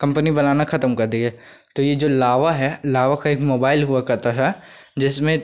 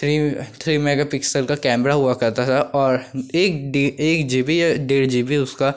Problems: none marked